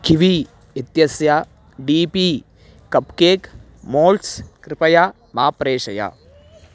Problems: none marked